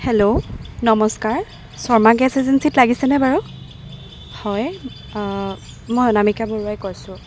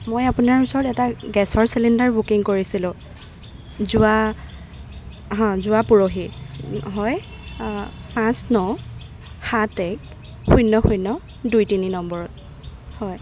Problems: constant background noise